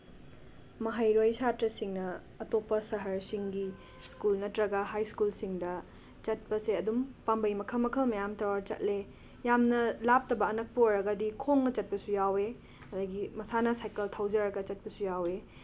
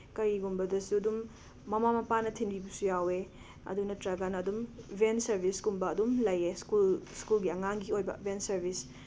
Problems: background sounds at intervals